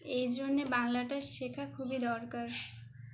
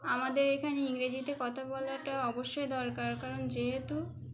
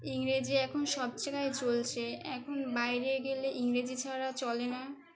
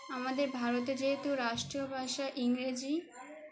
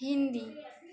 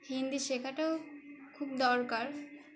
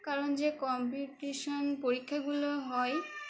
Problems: constant background noise